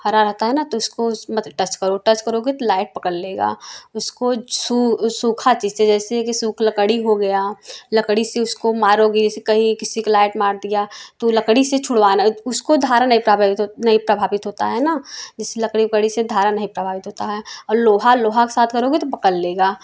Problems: none marked